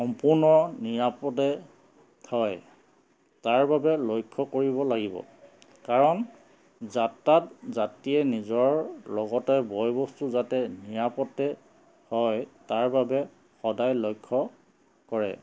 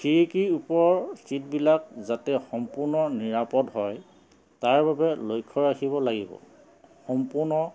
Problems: constant background noise